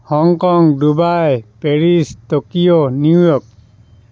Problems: none marked